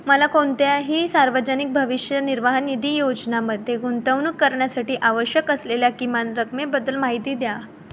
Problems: constant background noise